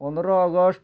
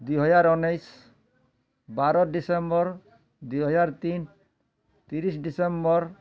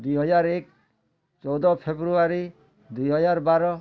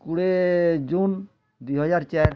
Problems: none marked